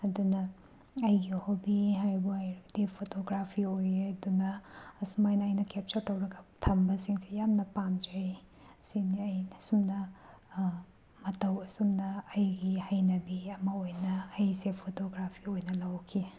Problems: background sounds at intervals